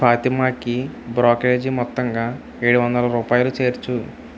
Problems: constant background noise